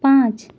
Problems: none marked